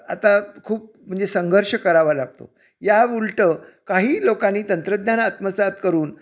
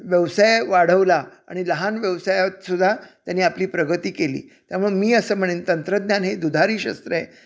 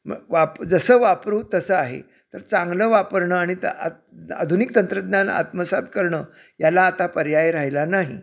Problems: none marked